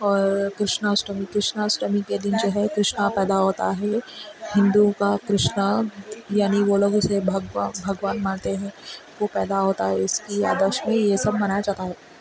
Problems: constant background noise, continuous background conversations